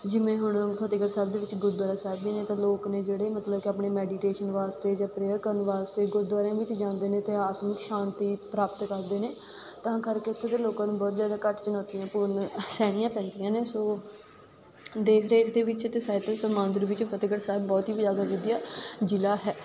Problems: constant background noise